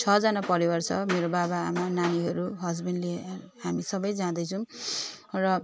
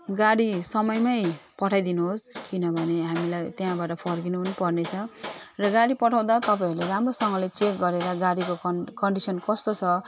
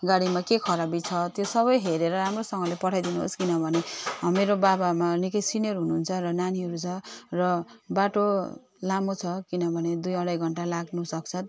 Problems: constant background noise